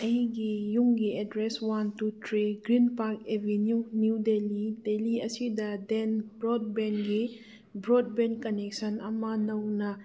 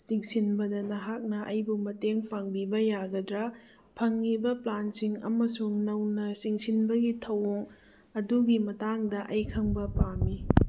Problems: none marked